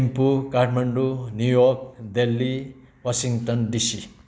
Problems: background sounds at intervals